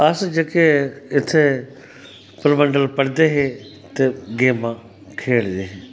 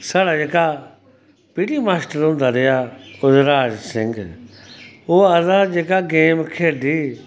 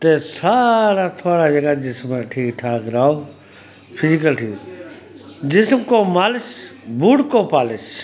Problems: constant background noise